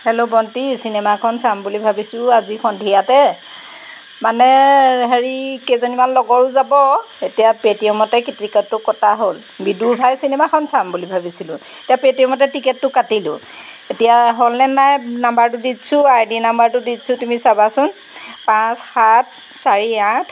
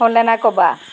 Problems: background sounds at intervals